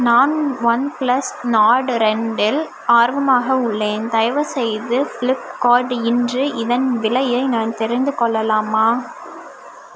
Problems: background sounds at intervals